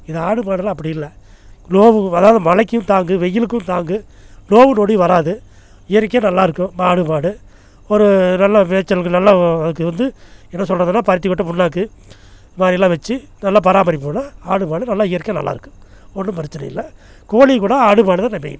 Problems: none marked